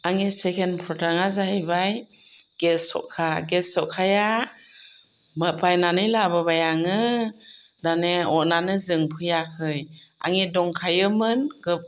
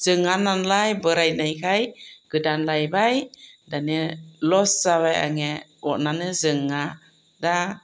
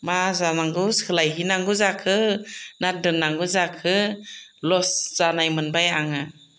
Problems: none marked